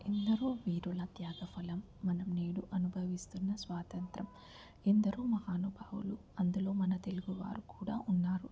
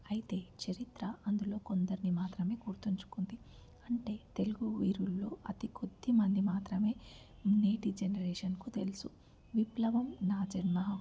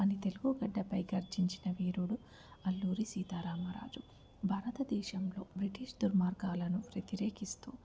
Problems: constant background noise, low volume